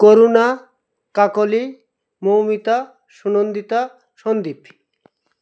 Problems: none marked